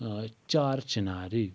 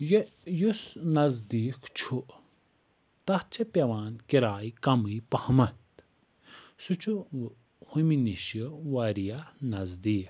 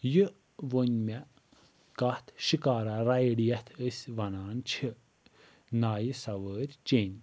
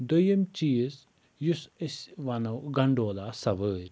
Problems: none marked